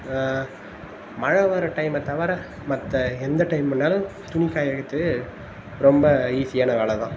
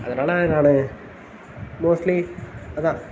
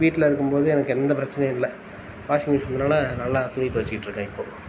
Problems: constant background noise